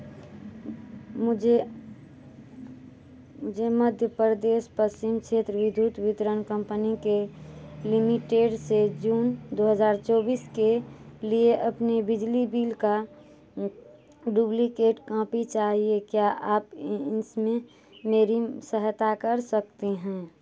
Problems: low volume